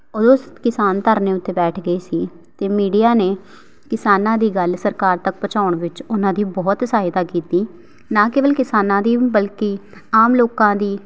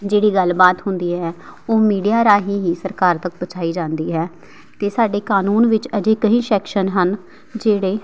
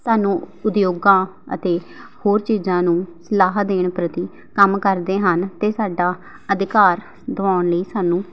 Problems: background sounds at intervals